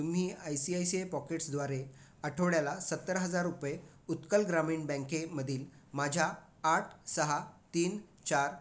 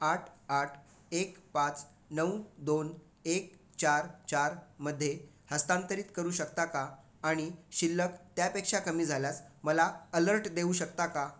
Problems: constant background noise